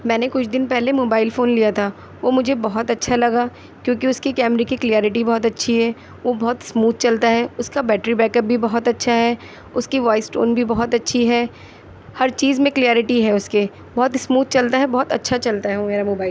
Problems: none marked